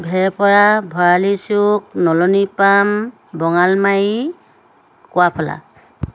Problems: constant background noise